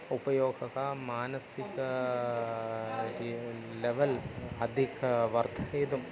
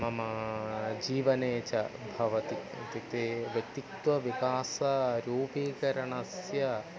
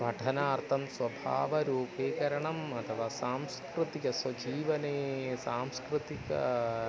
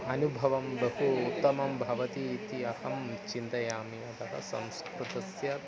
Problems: constant background noise, continuous background conversations